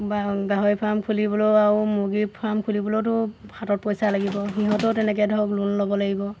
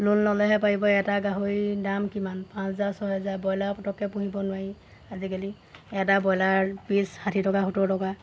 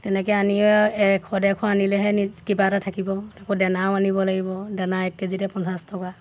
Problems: constant background noise, background conversations at intervals